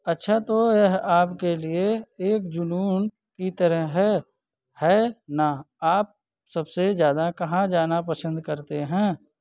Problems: none marked